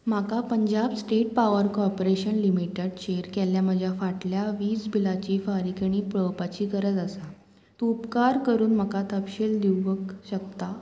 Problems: none marked